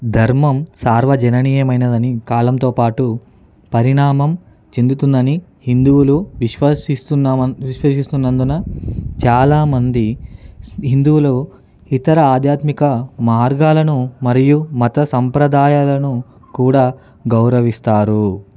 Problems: background sounds at intervals